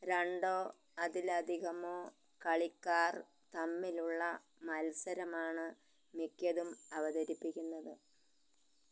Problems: low volume